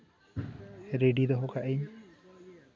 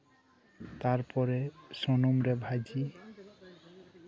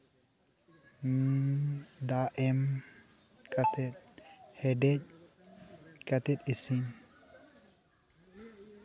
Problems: continuous background conversations, low volume